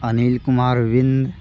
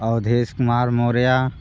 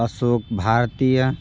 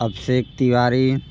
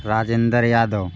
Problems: constant background noise